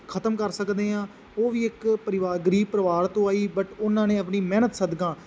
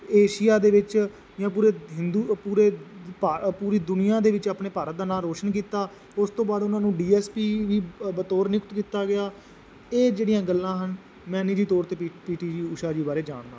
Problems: constant background noise